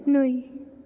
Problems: none marked